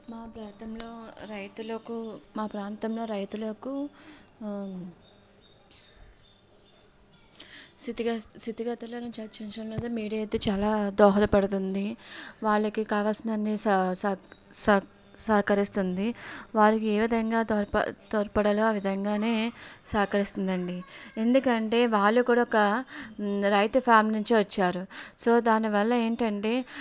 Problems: none marked